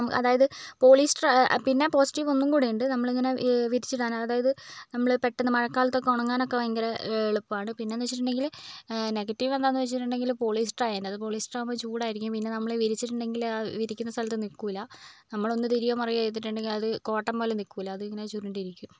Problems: low volume